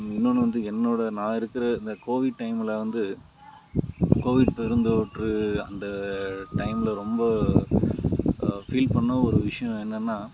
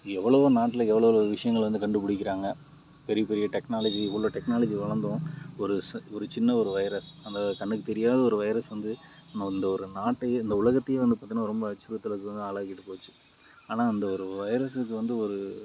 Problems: background sounds at intervals